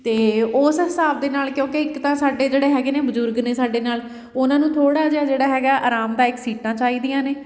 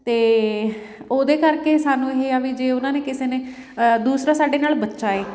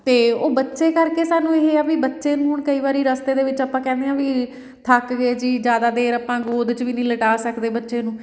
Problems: background sounds at intervals, background conversations at intervals